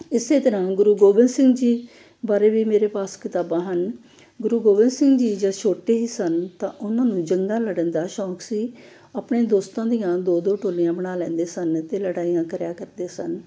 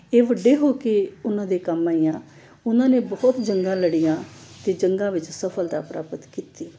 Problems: none marked